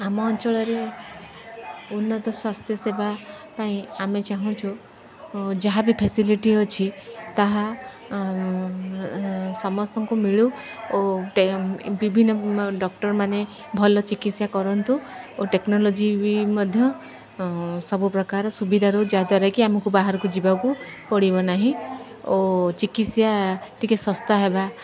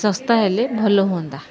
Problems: none marked